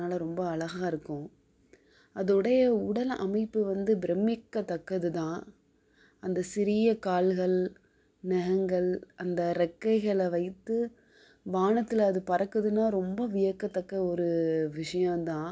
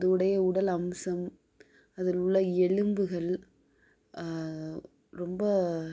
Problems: low volume